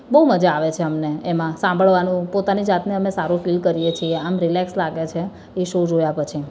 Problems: constant background noise, continuous background conversations